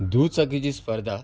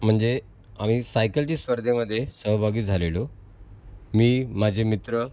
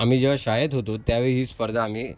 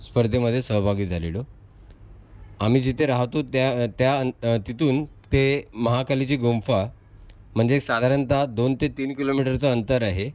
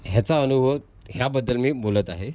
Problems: constant background noise